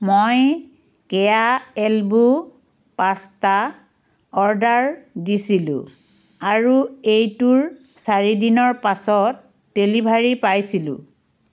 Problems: constant background noise